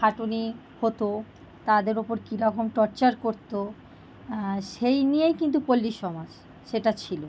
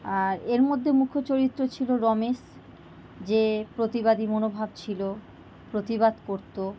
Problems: constant background noise